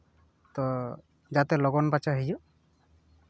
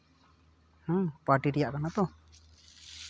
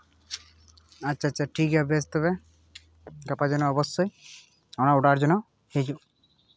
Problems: none marked